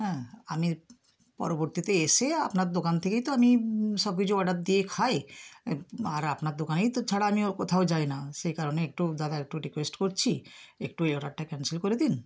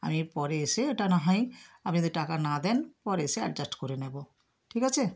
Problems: none marked